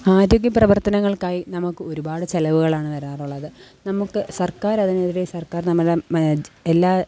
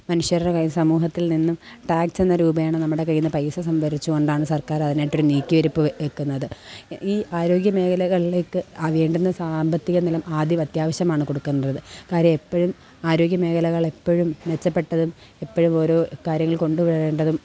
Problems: background sounds at intervals